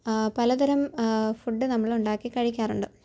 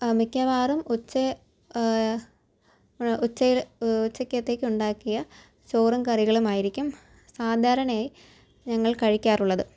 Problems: low volume